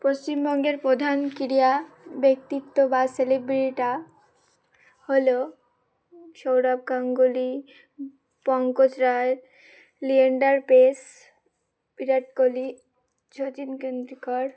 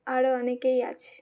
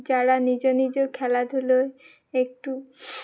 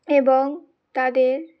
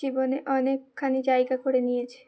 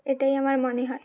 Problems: none marked